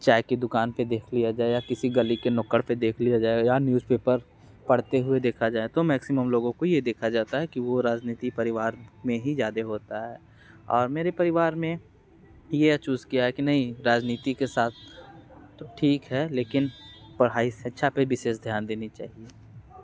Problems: constant background noise